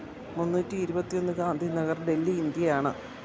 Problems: constant background noise, low volume